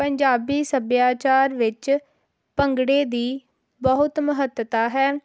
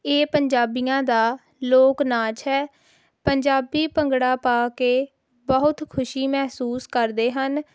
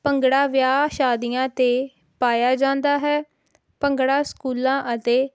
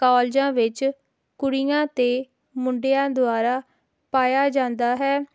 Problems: none marked